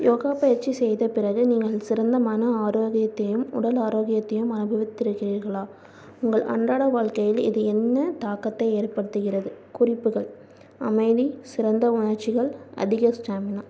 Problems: low volume